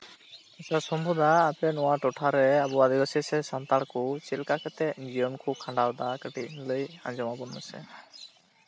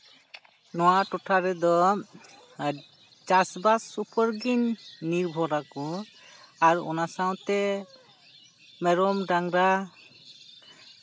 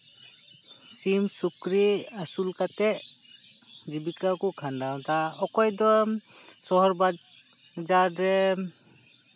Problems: constant background noise